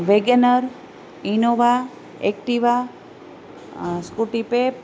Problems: none marked